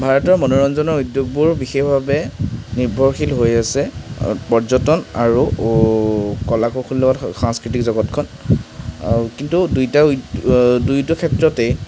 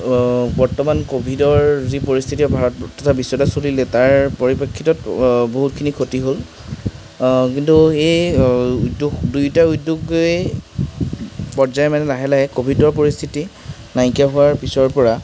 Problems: constant background noise